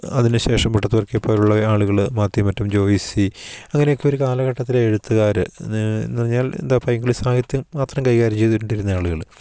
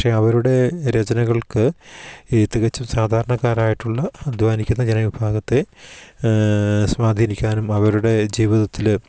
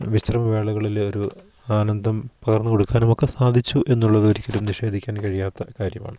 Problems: background sounds at intervals